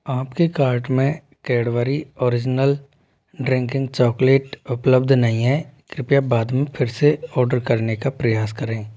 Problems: none marked